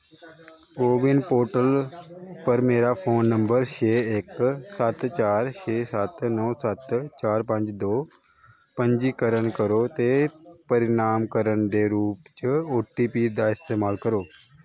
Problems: background sounds at intervals